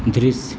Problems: none marked